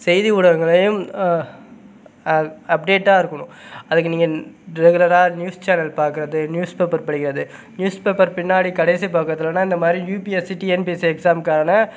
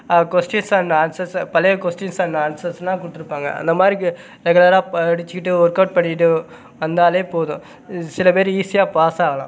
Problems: none marked